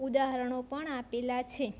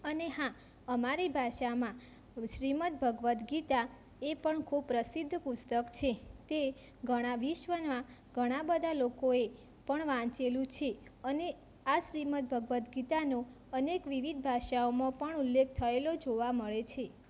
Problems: constant background noise